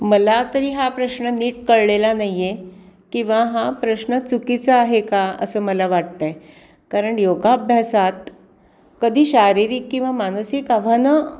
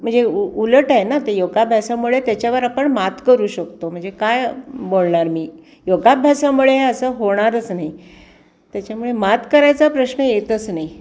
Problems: constant background noise